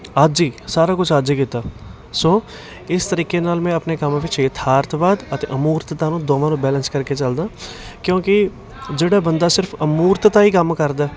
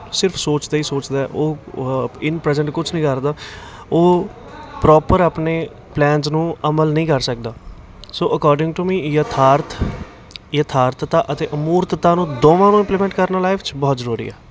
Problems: constant background noise, continuous background conversations